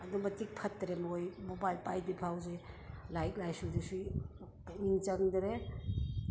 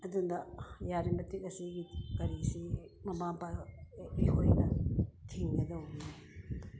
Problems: background sounds at intervals